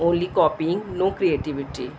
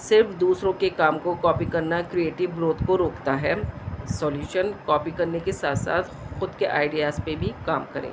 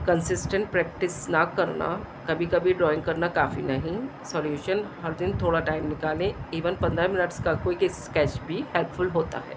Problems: constant background noise